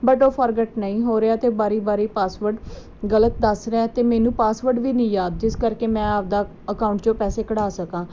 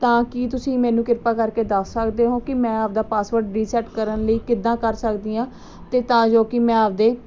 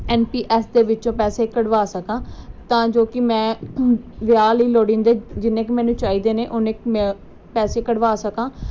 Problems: background sounds at intervals